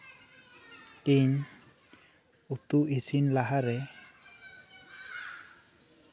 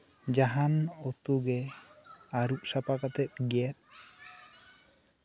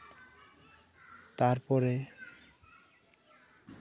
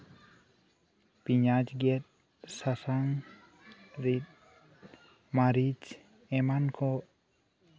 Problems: continuous background conversations, low volume